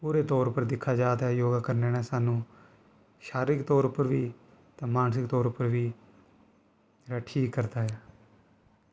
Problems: constant background noise